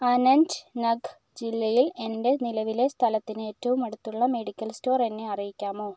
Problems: none marked